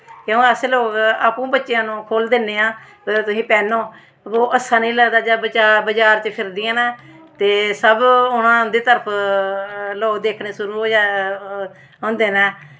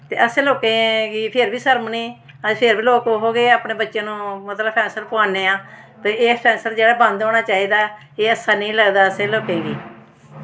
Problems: constant background noise